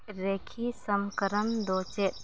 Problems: none marked